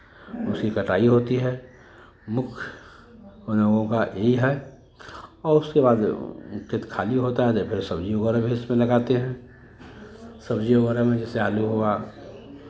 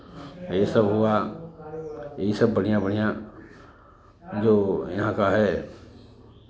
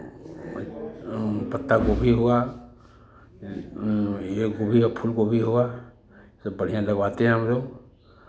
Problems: none marked